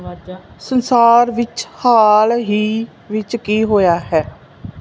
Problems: background sounds at intervals